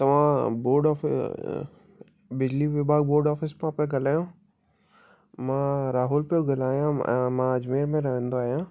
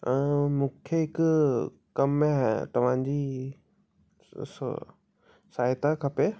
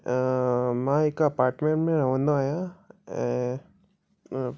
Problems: none marked